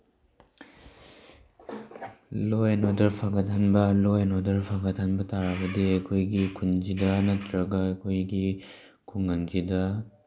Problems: none marked